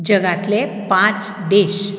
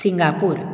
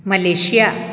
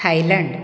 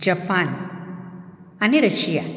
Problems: background sounds at intervals